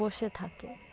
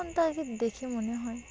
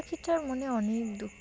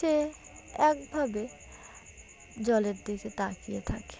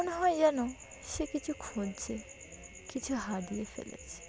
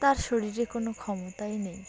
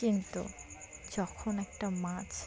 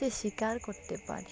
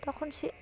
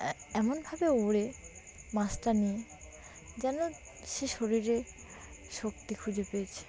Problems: constant background noise, background conversations at intervals